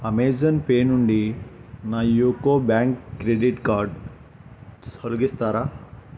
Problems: constant background noise